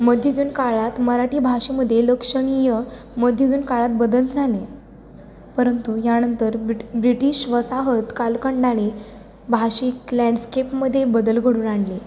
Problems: none marked